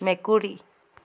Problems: constant background noise